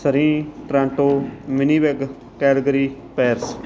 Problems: background sounds at intervals